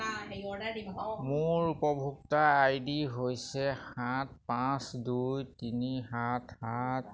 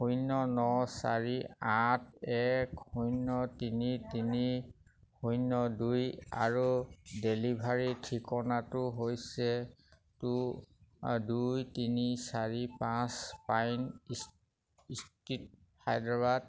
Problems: none marked